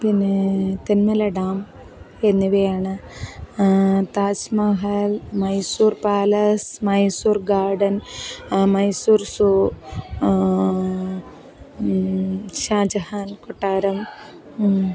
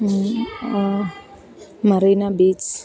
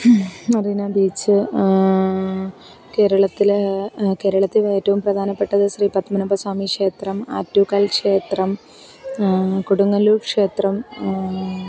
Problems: none marked